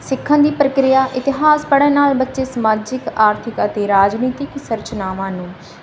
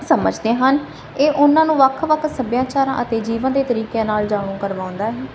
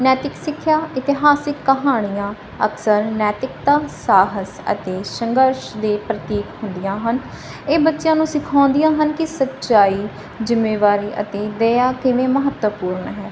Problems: constant background noise